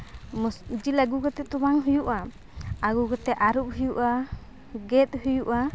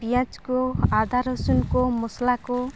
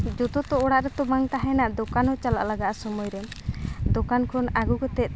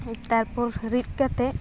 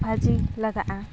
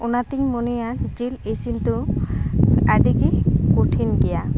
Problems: none marked